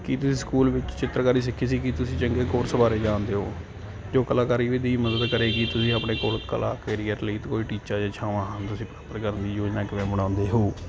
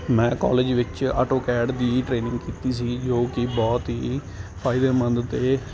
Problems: constant background noise